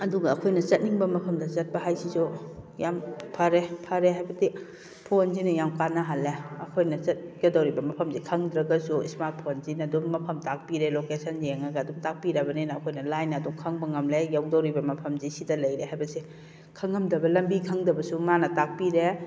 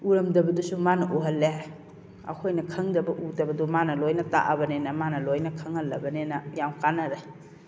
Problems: background sounds at intervals